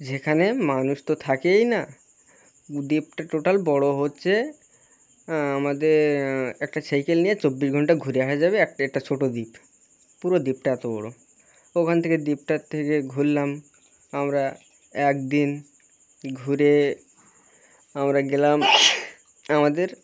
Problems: constant background noise, continuous background conversations